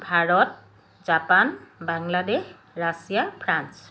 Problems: constant background noise